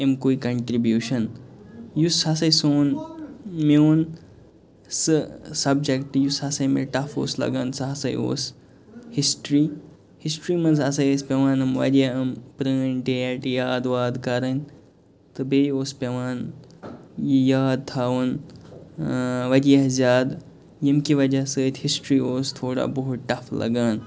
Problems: background sounds at intervals, background conversations at intervals